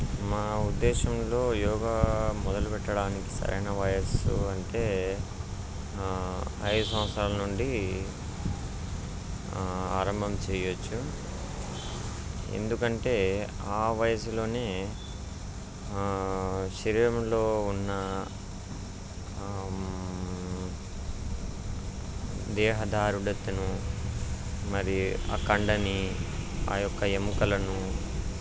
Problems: constant background noise